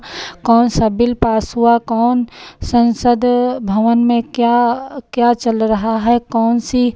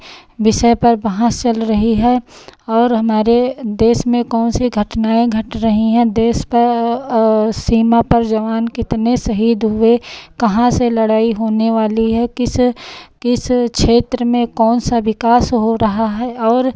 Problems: none marked